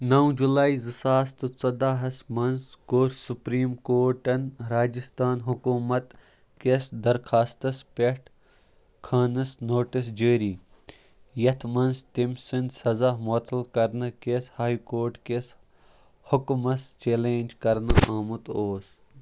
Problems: none marked